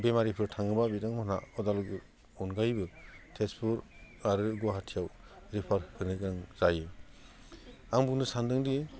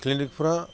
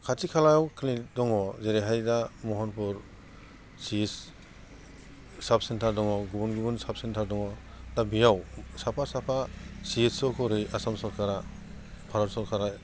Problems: none marked